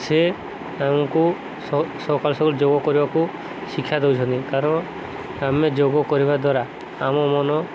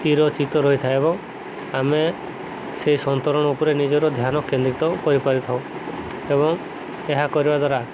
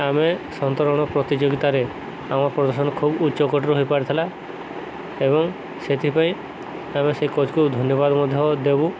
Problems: constant background noise